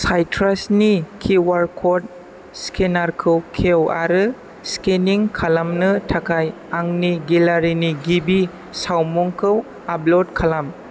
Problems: none marked